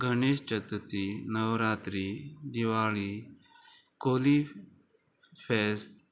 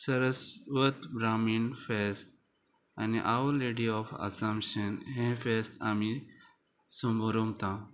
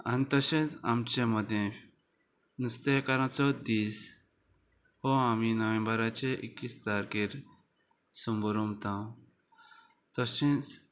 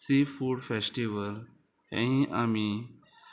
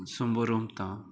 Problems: constant background noise